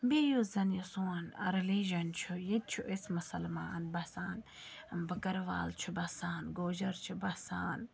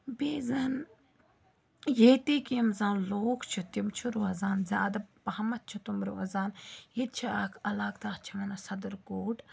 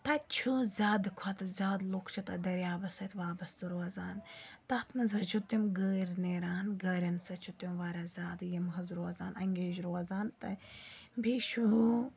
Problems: background conversations at intervals